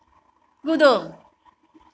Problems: none marked